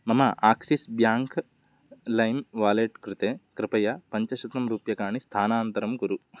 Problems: none marked